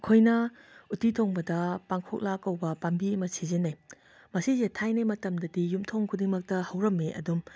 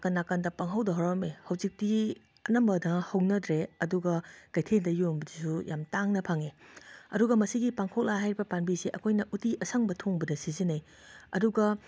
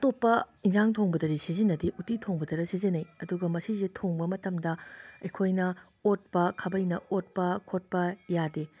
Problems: background sounds at intervals